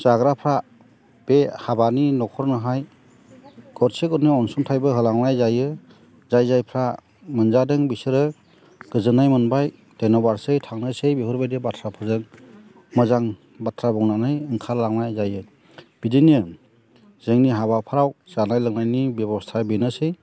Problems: none marked